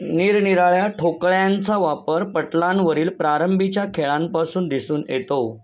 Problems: none marked